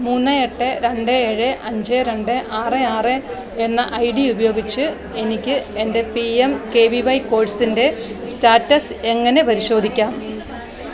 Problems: constant background noise